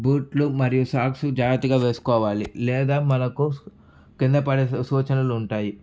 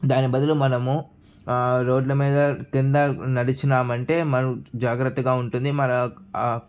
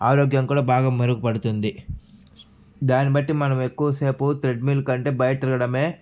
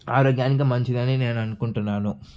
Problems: none marked